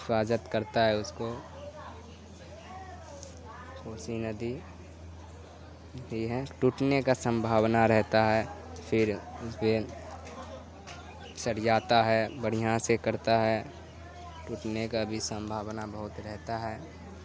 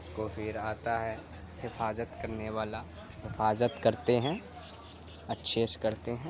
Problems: constant background noise